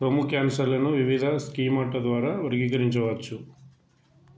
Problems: constant background noise